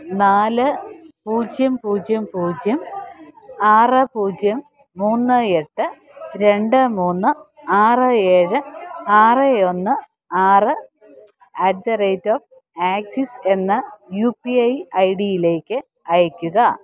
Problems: none marked